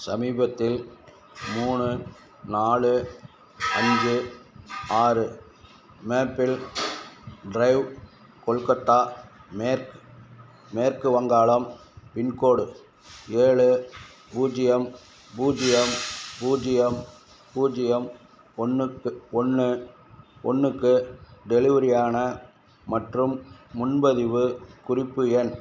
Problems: none marked